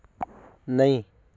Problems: none marked